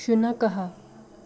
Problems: none marked